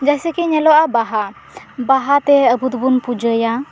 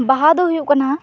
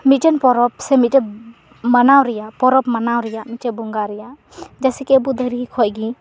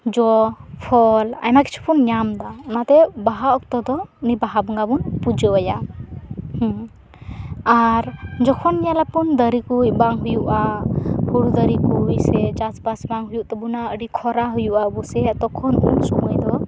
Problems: none marked